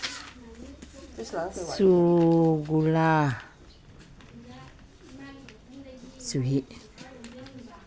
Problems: background sounds at intervals, background conversations at intervals